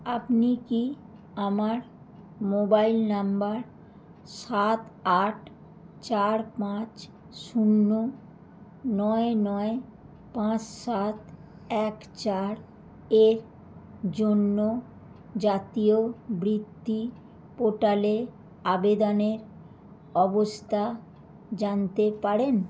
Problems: constant background noise